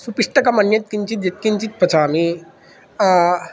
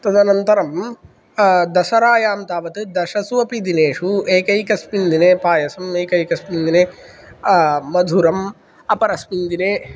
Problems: none marked